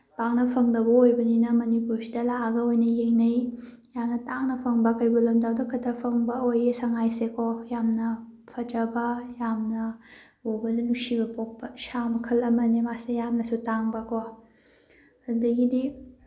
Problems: background sounds at intervals